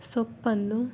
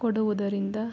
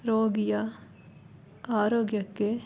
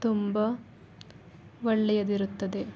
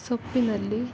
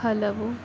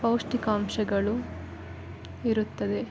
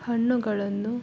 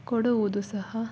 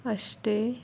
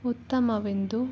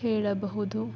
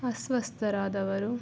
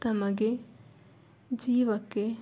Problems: background sounds at intervals